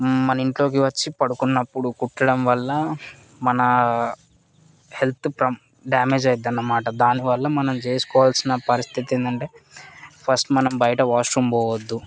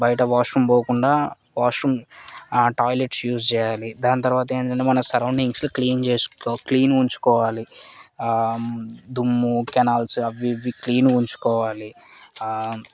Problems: constant background noise, background conversations at intervals